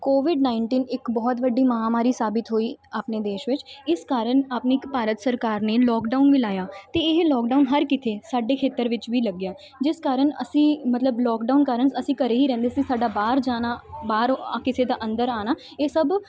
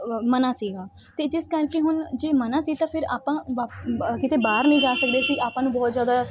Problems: background sounds at intervals